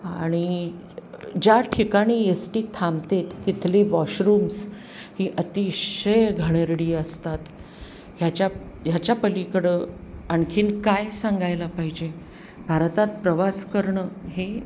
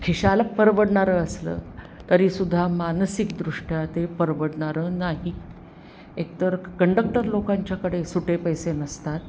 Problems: constant background noise